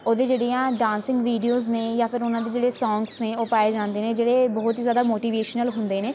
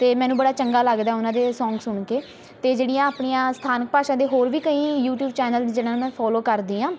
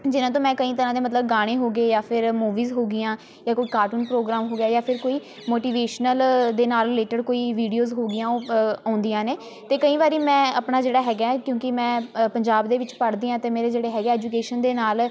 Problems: constant background noise, background conversations at intervals